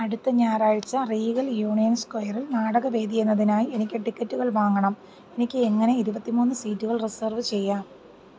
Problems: none marked